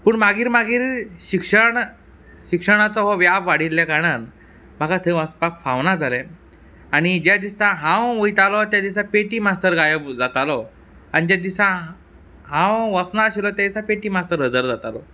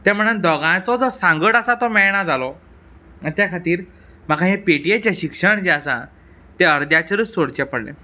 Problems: background sounds at intervals